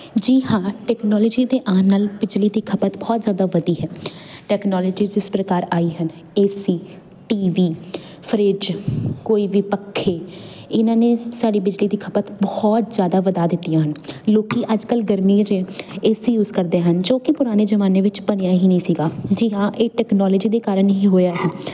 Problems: none marked